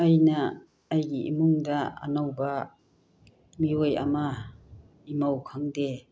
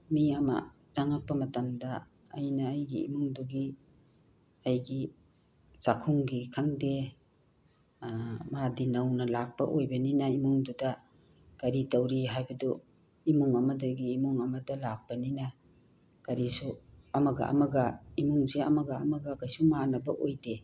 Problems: none marked